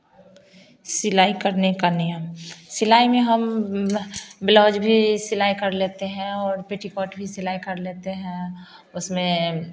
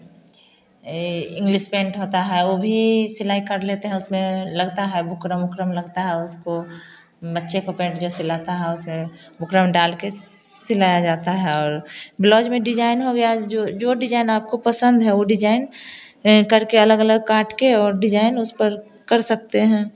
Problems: constant background noise